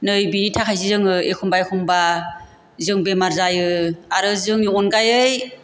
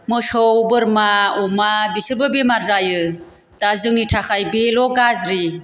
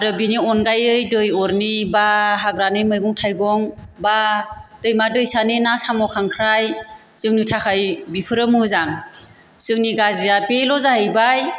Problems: none marked